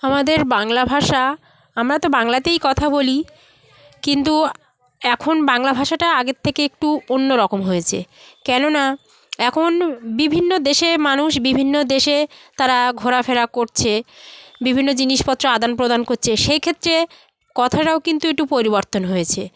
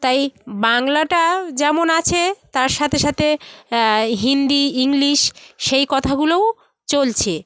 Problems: constant background noise